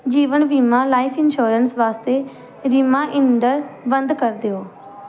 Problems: none marked